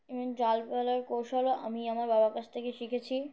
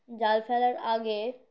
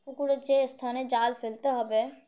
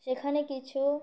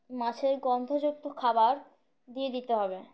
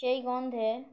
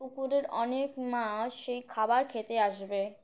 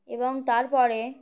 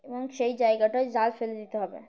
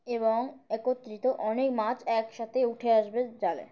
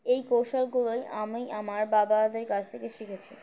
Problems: none marked